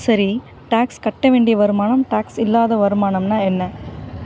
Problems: constant background noise